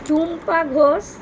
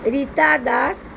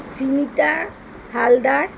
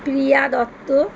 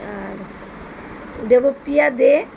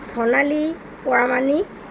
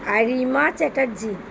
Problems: constant background noise